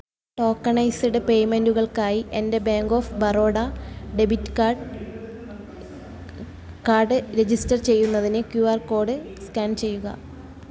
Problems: continuous background conversations